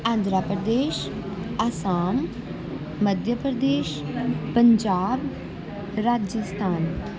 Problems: background conversations at intervals